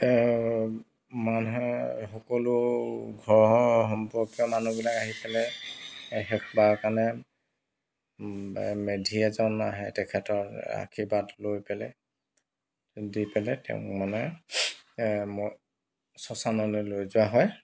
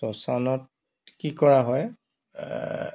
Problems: background sounds at intervals